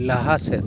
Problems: constant background noise